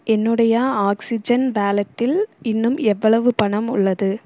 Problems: none marked